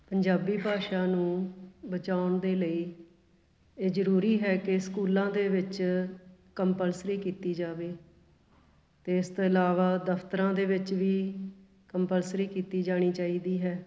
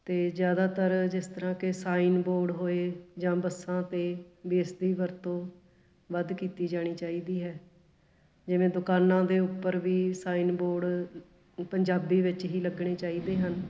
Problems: background sounds at intervals